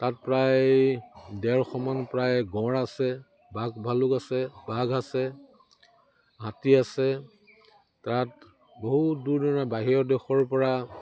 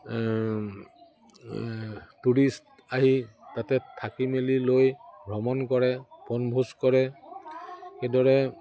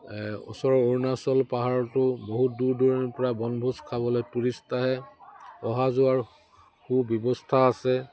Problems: none marked